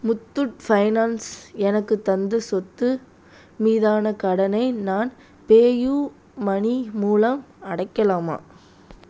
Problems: constant background noise